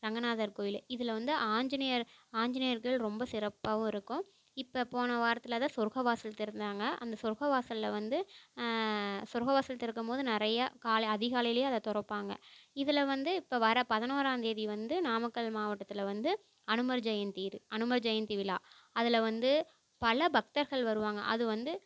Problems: none marked